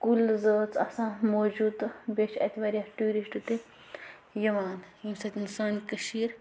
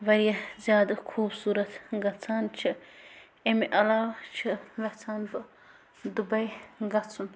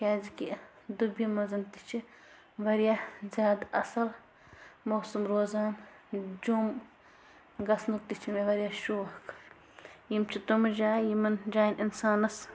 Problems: constant background noise, low volume